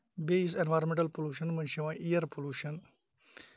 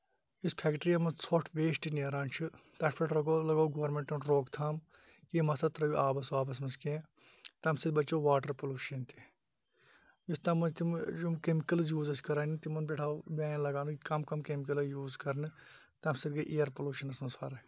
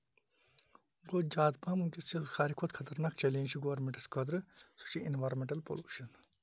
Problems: none marked